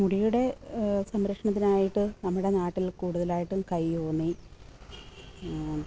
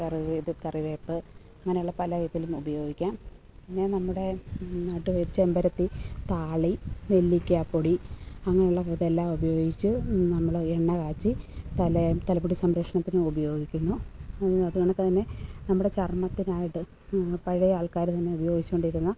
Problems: background sounds at intervals, low volume